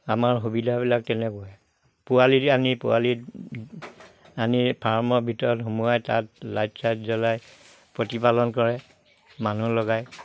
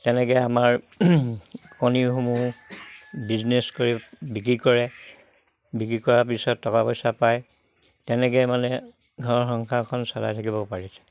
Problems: background sounds at intervals